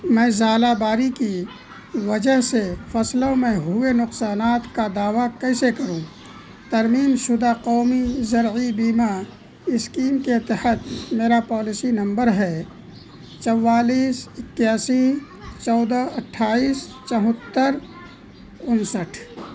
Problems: constant background noise